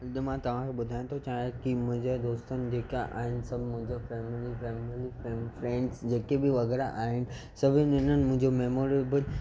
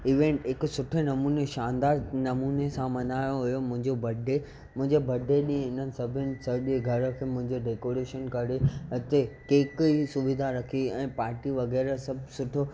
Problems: constant background noise